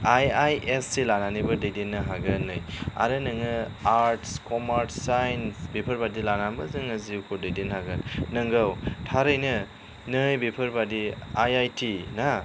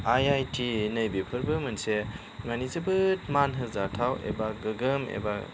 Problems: none marked